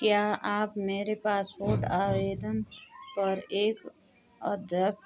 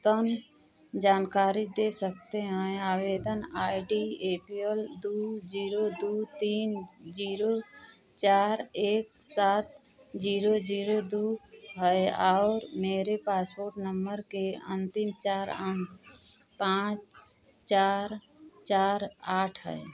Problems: none marked